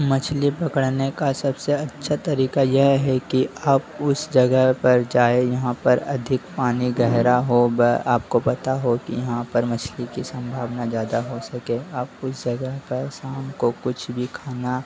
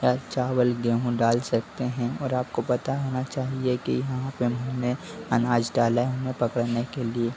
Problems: constant background noise